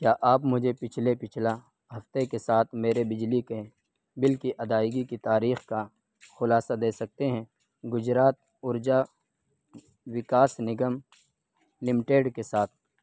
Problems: none marked